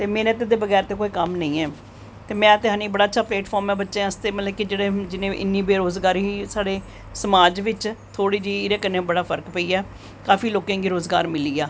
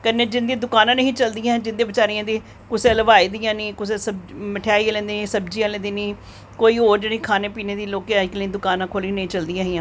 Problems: none marked